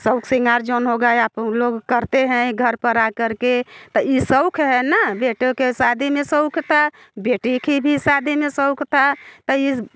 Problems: background sounds at intervals, background conversations at intervals